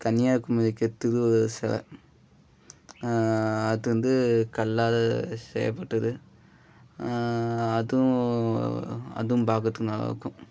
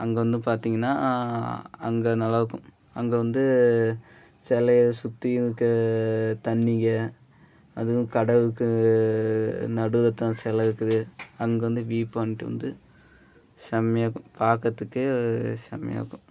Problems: none marked